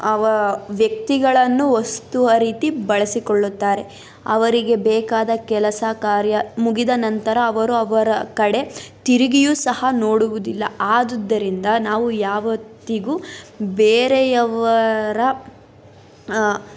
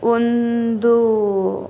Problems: constant background noise